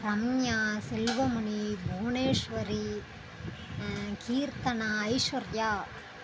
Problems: constant background noise